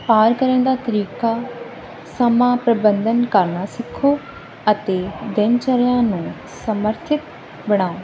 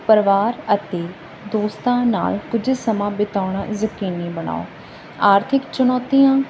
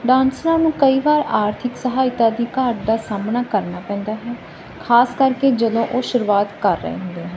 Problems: constant background noise